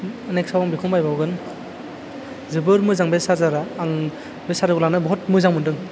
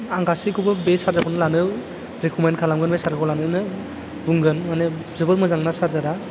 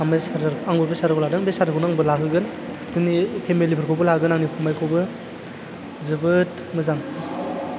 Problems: low volume